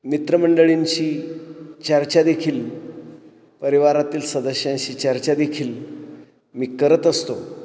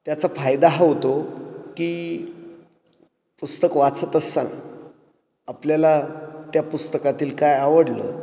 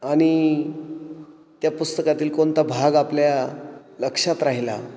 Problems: echo